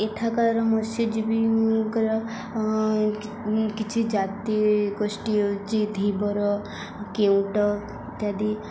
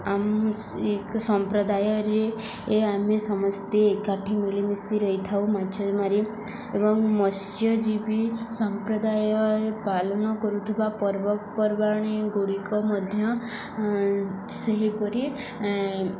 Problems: none marked